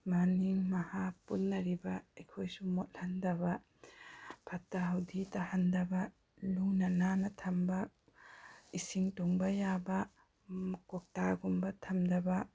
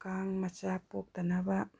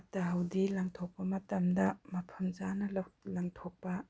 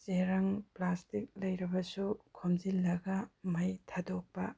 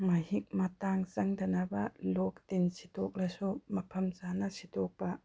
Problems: background sounds at intervals